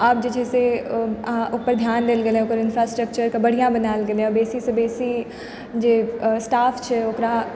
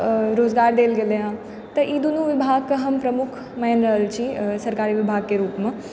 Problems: background sounds at intervals